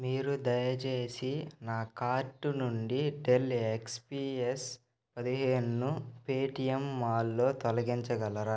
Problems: constant background noise